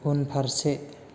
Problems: constant background noise